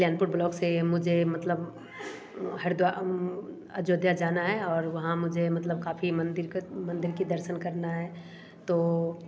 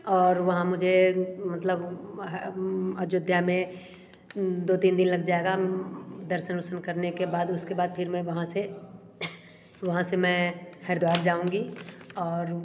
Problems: none marked